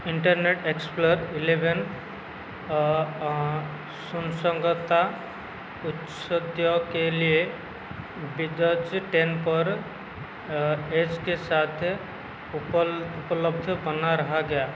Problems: constant background noise